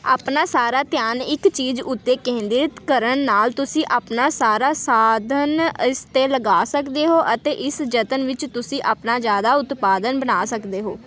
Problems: continuous background conversations